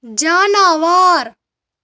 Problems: background sounds at intervals